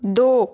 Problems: constant background noise